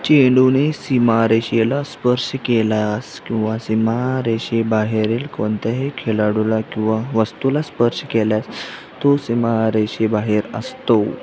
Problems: constant background noise, background conversations at intervals